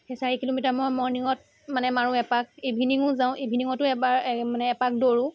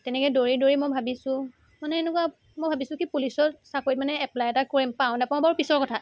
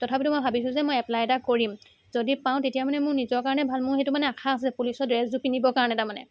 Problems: continuous background conversations